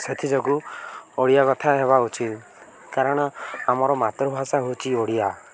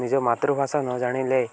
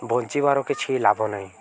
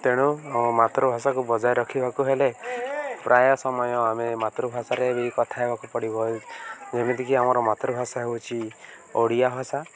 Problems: none marked